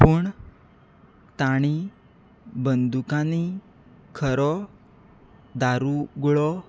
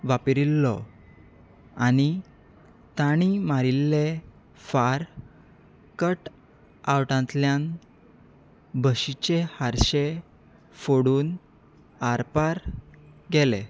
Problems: none marked